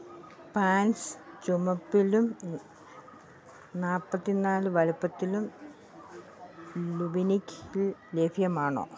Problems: low volume